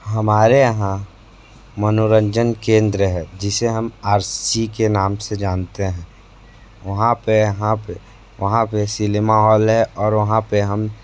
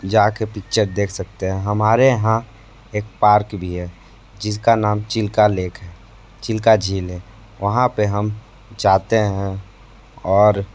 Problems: constant background noise